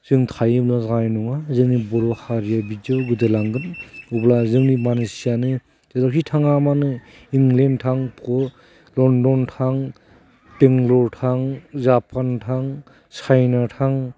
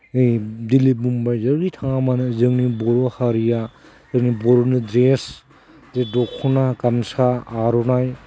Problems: none marked